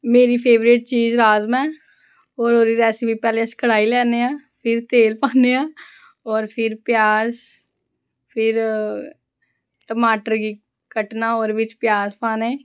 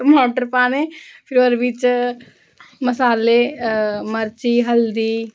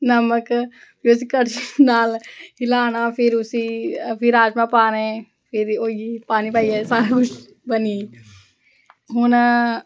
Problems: background conversations at intervals